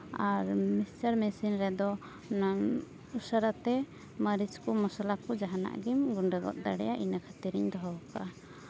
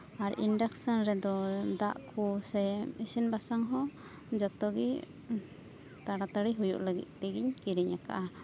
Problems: none marked